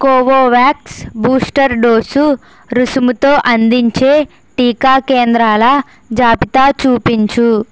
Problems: constant background noise